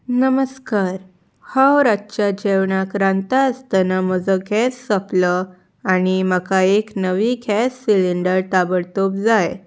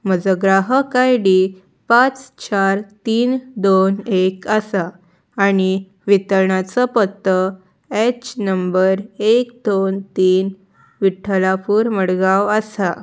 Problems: none marked